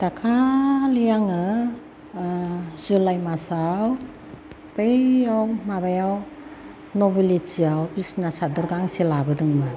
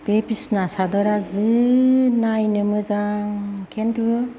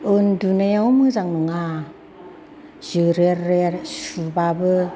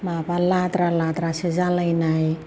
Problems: constant background noise, background conversations at intervals